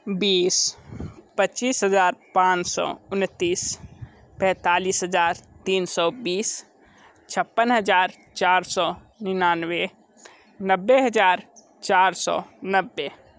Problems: background sounds at intervals